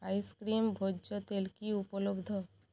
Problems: none marked